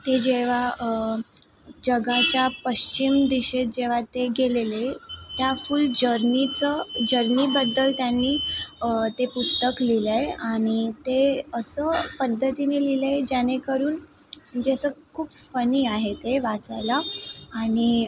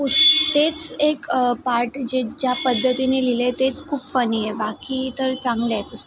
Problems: constant background noise